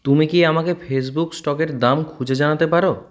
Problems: background sounds at intervals